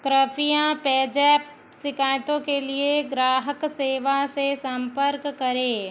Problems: none marked